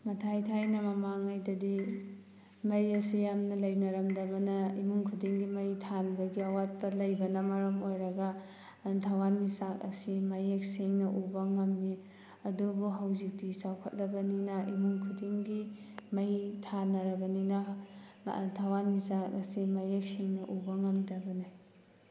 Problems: background sounds at intervals